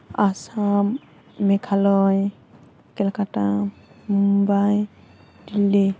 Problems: none marked